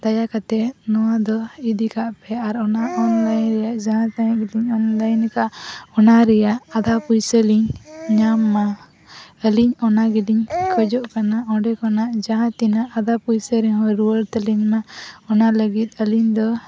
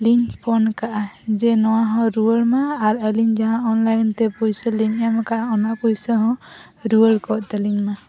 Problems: background conversations at intervals